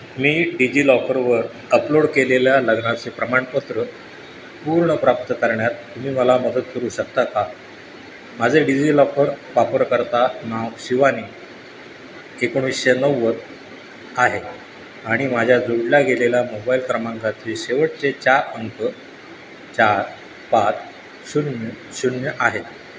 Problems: none marked